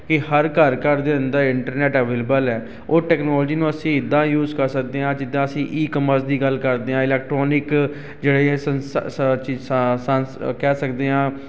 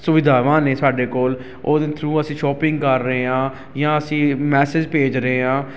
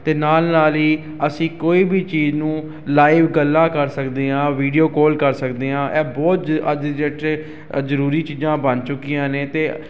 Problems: constant background noise